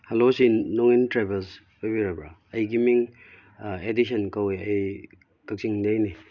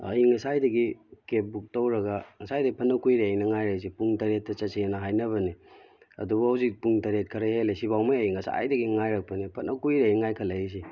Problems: background sounds at intervals